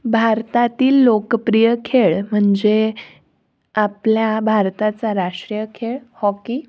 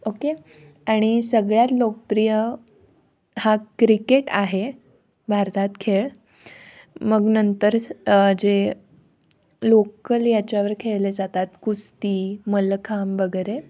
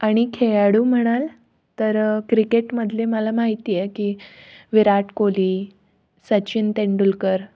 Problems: background sounds at intervals